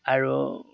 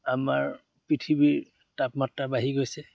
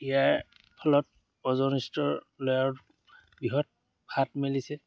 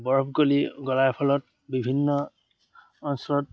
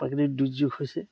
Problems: none marked